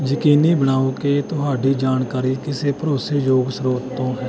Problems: constant background noise